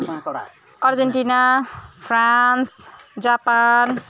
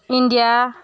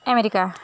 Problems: constant background noise, continuous background conversations